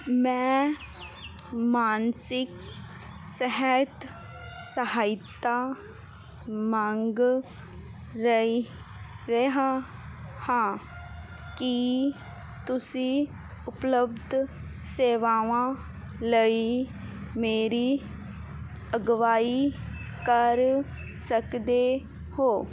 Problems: none marked